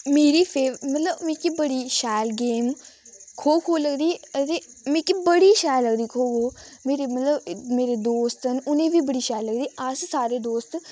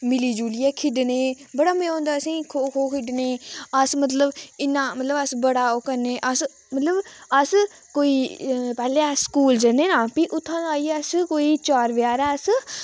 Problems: echo